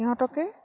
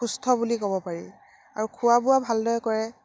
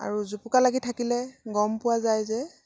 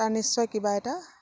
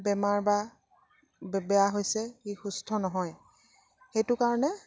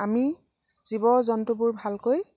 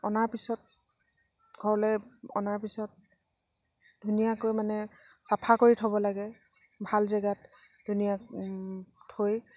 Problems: none marked